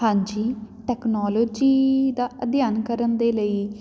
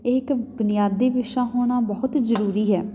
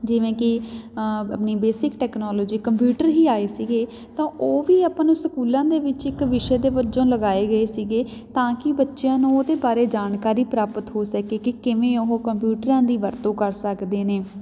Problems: background sounds at intervals